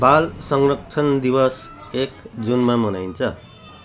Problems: constant background noise